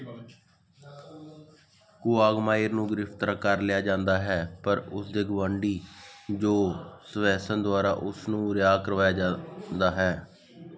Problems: background conversations at intervals